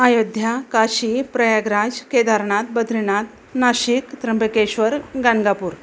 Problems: constant background noise